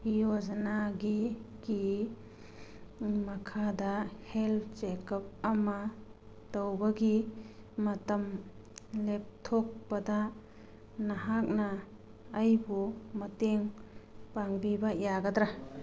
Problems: background sounds at intervals, background conversations at intervals